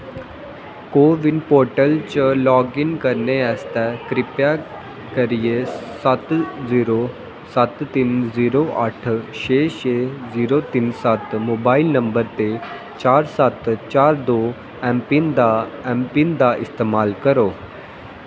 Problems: constant background noise, echo